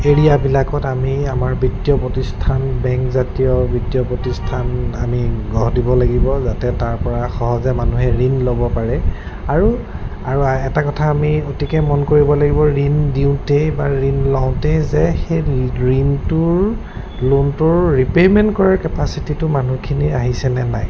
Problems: constant background noise